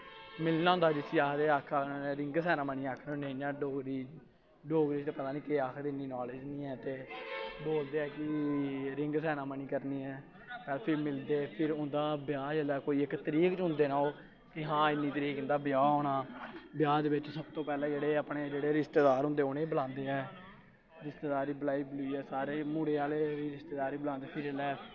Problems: constant background noise